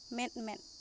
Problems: constant background noise